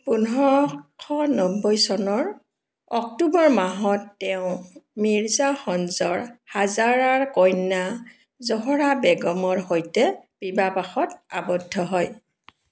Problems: none marked